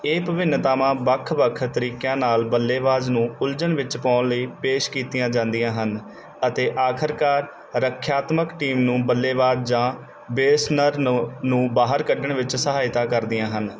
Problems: background sounds at intervals